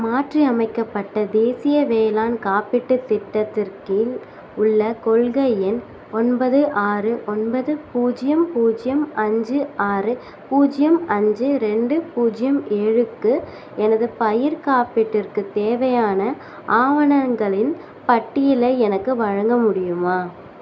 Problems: none marked